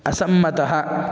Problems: none marked